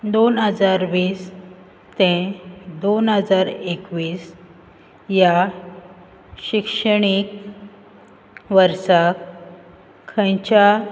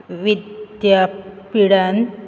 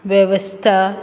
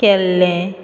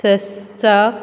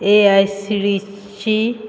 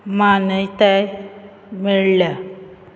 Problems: constant background noise